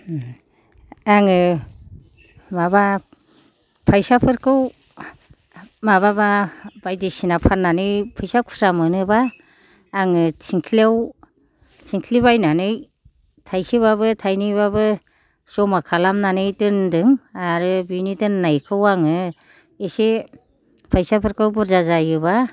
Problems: none marked